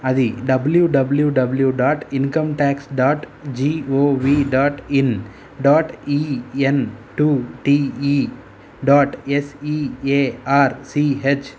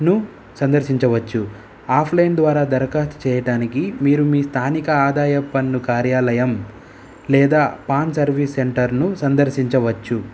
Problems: none marked